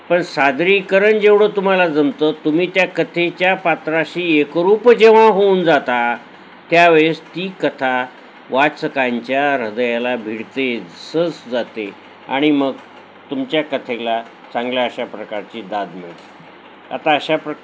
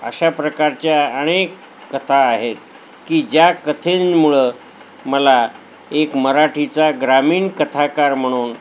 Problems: none marked